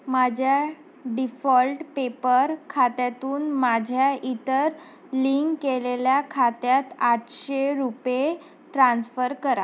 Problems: constant background noise